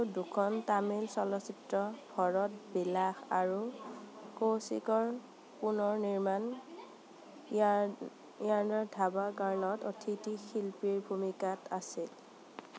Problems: constant background noise